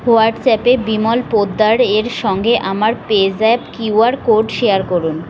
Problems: background sounds at intervals